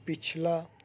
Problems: none marked